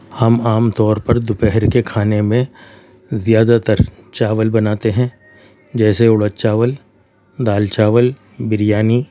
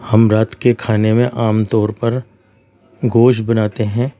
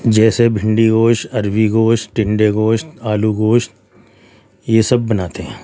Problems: none marked